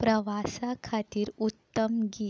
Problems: background sounds at intervals